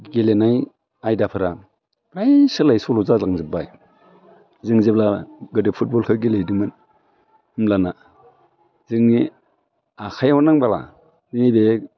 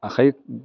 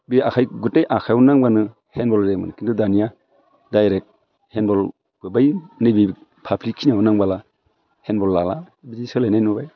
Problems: none marked